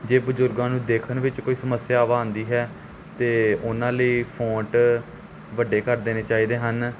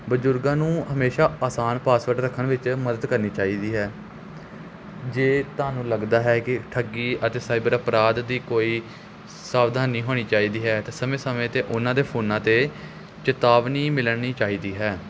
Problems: constant background noise